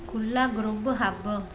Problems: constant background noise